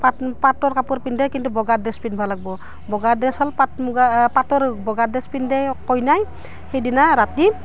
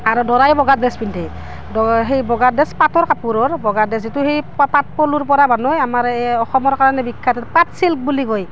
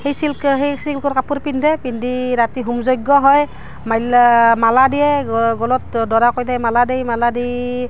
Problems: background sounds at intervals